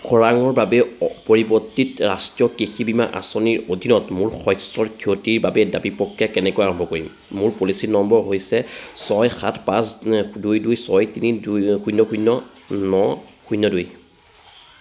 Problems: none marked